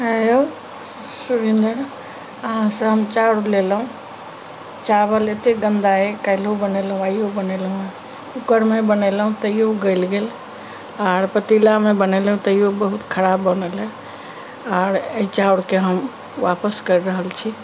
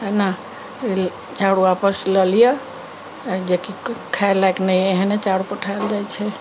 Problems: background sounds at intervals